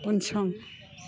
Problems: none marked